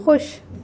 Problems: none marked